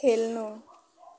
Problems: background sounds at intervals